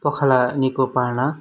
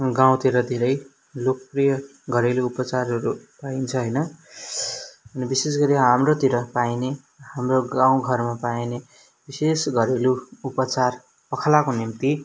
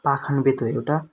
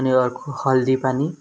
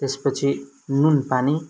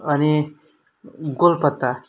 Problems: background sounds at intervals